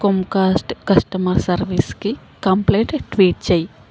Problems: constant background noise